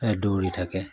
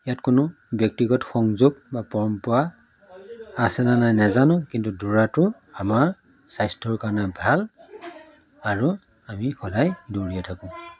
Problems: background sounds at intervals, background conversations at intervals